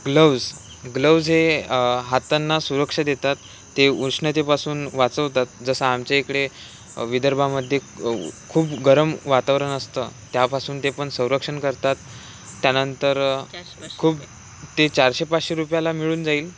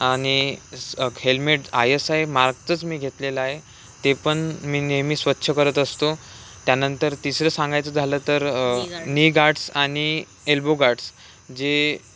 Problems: constant background noise